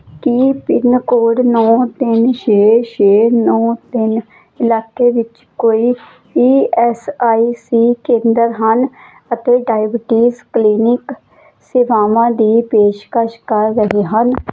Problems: none marked